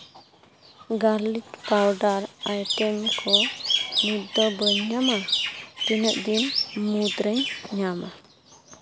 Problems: background sounds at intervals